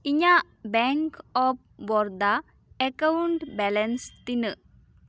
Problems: none marked